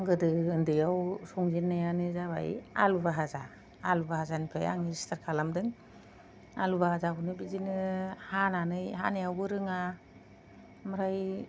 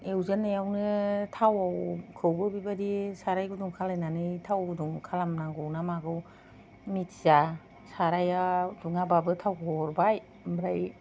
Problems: low volume